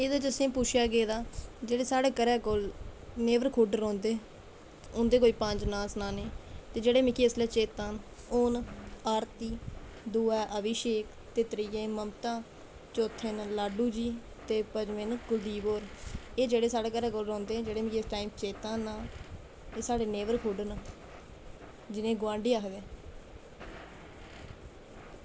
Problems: constant background noise